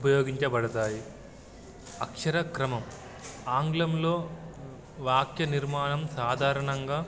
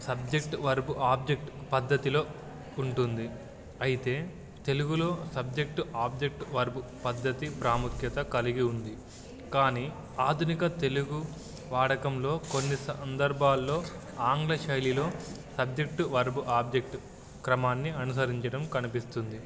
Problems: background sounds at intervals